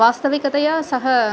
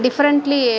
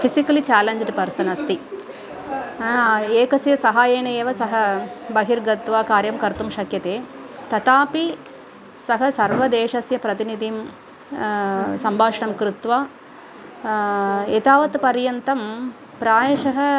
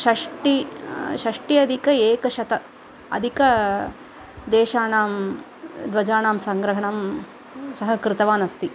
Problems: background sounds at intervals, background conversations at intervals